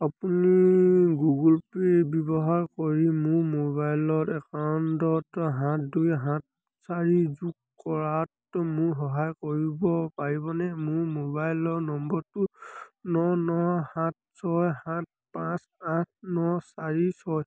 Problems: none marked